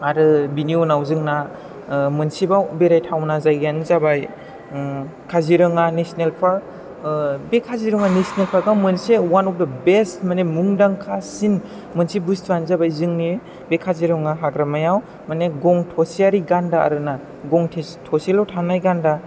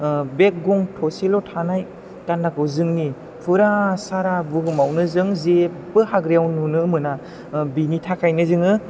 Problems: background sounds at intervals